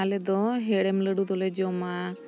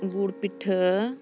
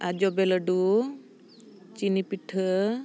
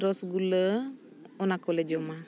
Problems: background sounds at intervals